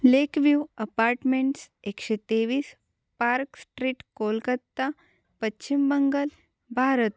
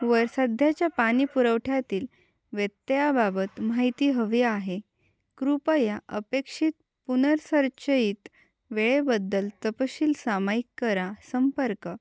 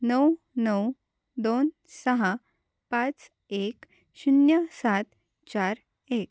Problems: background sounds at intervals